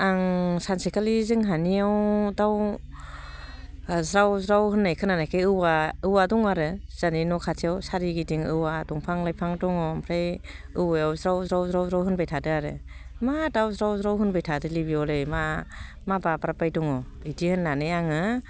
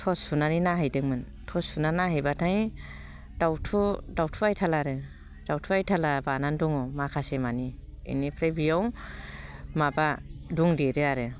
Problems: low volume